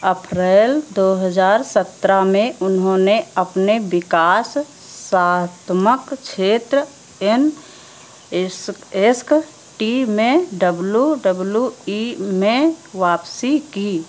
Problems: constant background noise